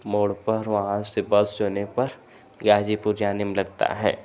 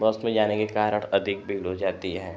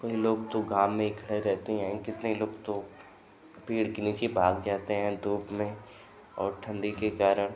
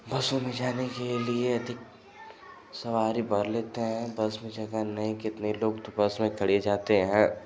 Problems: constant background noise